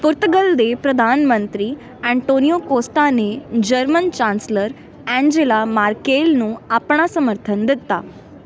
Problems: none marked